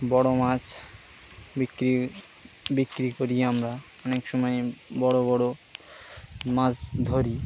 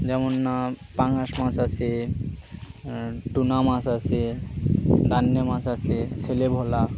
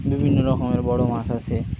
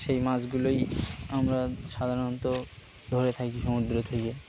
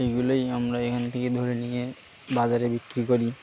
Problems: constant background noise